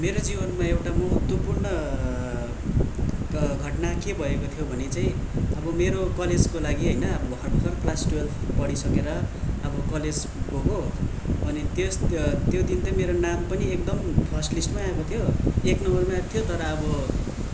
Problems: constant background noise